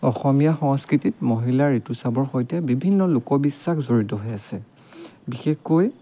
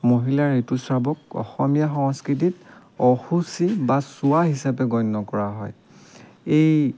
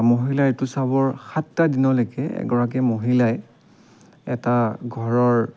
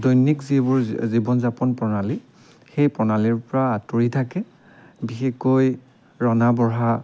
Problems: none marked